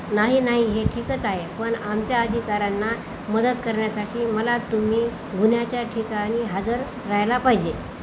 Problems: constant background noise